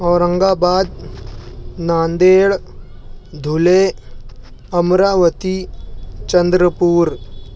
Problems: constant background noise